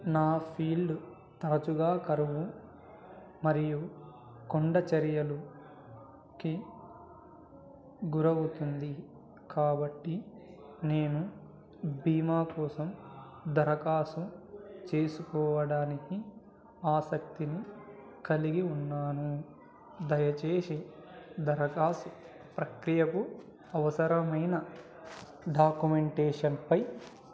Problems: low volume